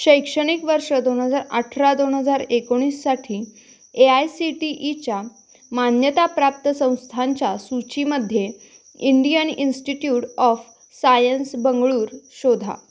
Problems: none marked